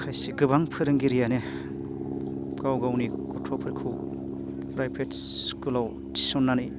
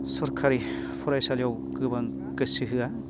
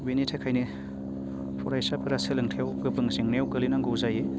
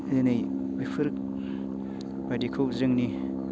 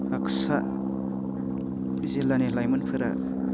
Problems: constant background noise